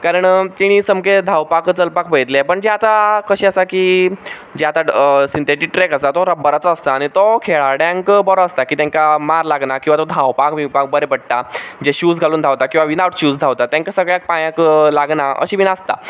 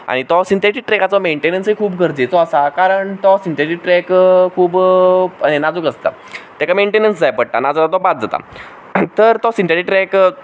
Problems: background sounds at intervals